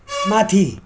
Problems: background conversations at intervals